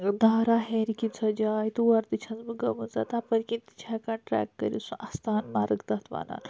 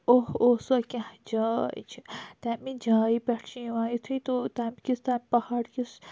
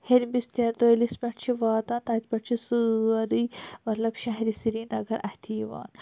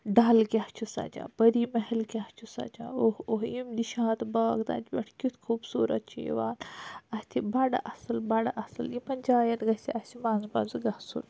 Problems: none marked